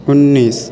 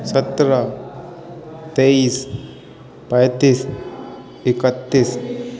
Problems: constant background noise